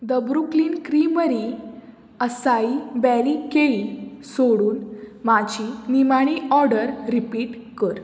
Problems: none marked